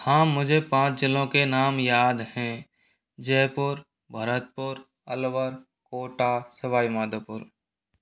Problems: constant background noise